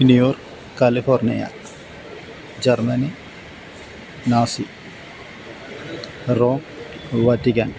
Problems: constant background noise